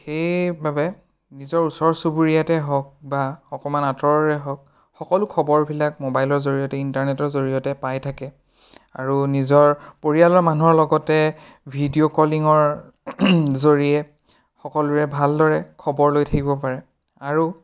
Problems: none marked